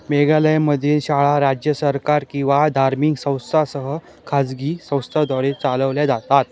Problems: continuous background conversations